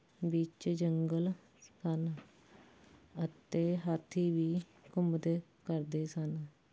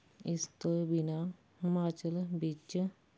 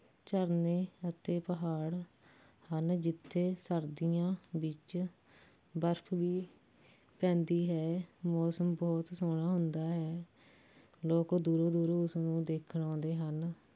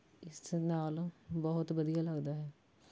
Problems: none marked